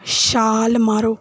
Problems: none marked